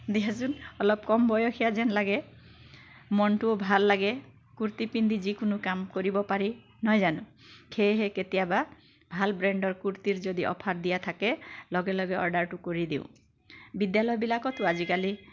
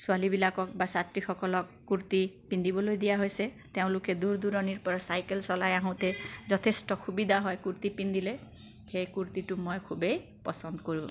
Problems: constant background noise